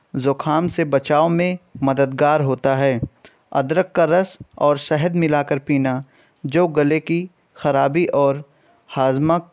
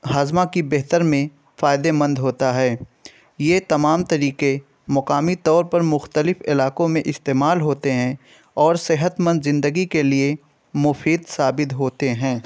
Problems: none marked